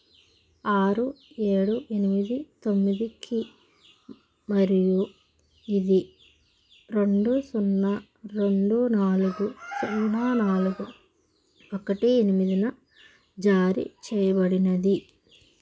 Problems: constant background noise